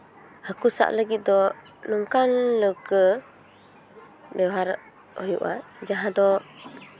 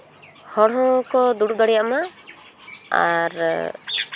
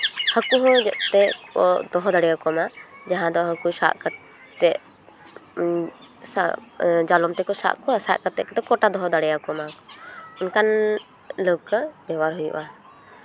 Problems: background sounds at intervals, background conversations at intervals